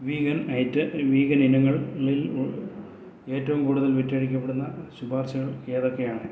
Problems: low volume